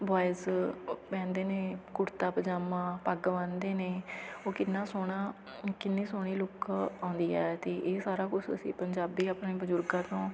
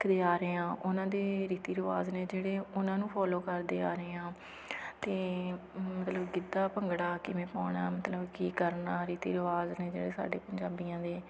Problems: none marked